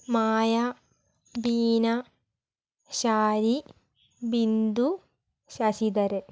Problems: low volume